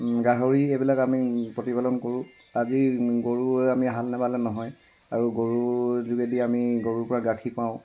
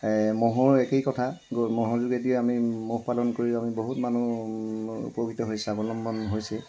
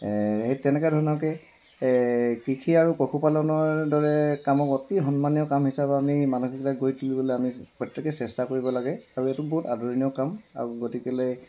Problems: constant background noise